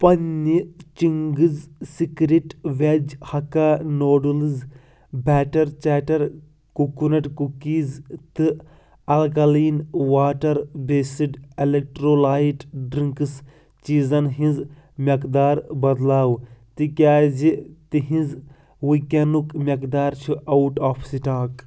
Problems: constant background noise